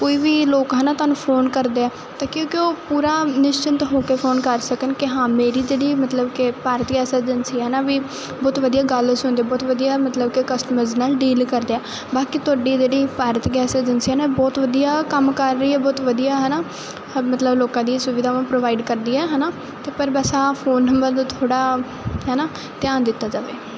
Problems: none marked